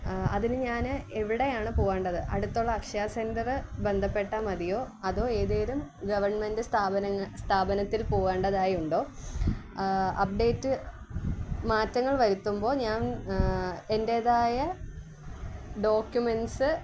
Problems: background sounds at intervals